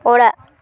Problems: none marked